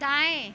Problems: constant background noise